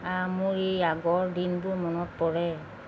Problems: constant background noise